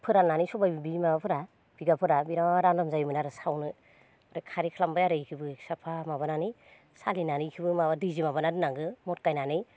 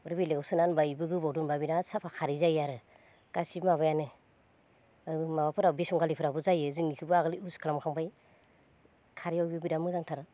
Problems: none marked